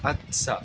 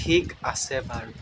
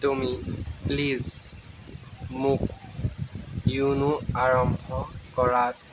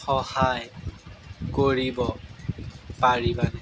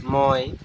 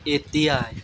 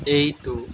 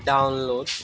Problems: background sounds at intervals